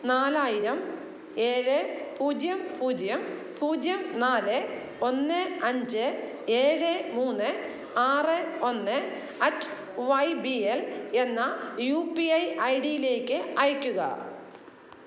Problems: none marked